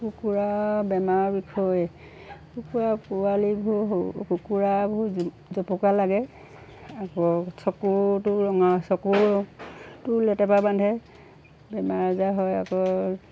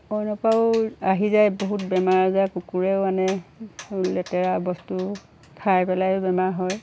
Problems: background sounds at intervals